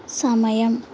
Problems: constant background noise